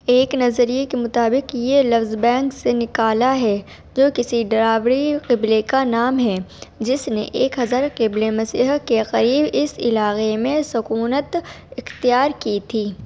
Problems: background sounds at intervals